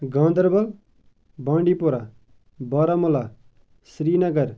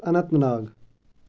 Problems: none marked